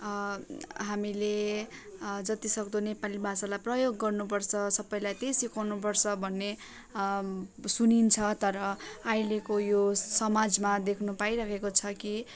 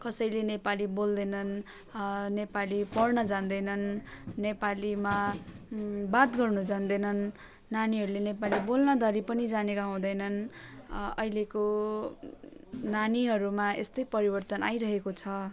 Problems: none marked